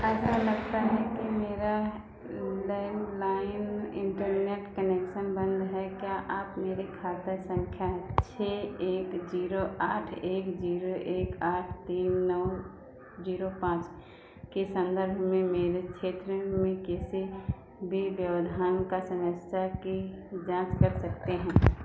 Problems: constant background noise